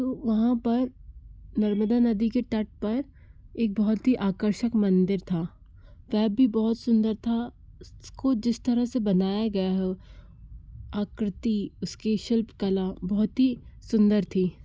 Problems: background sounds at intervals